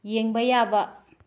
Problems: low volume